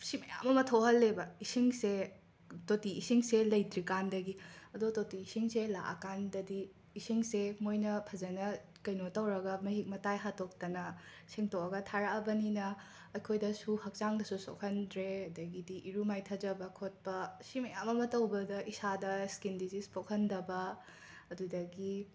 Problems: background sounds at intervals